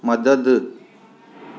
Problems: constant background noise